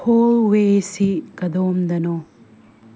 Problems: low volume